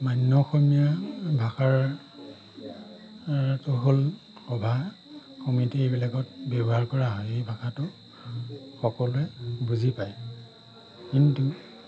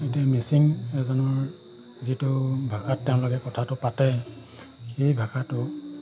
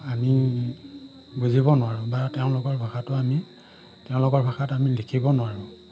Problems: constant background noise